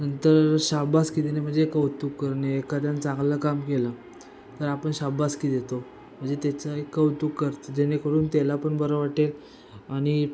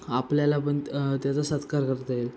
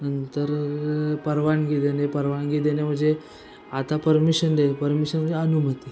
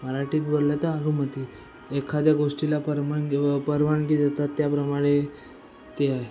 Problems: constant background noise, continuous background conversations